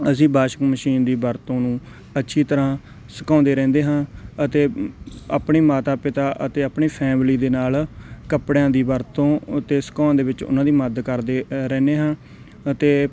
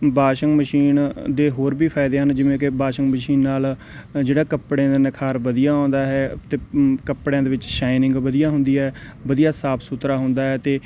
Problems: none marked